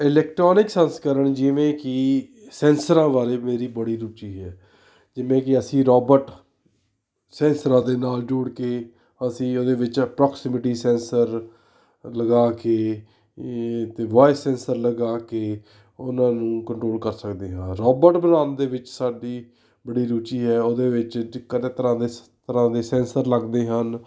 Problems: none marked